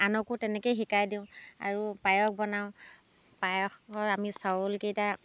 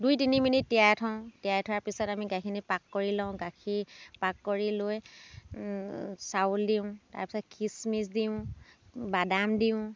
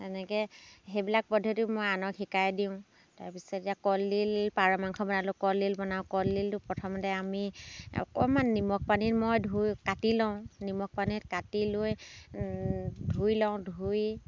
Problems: background sounds at intervals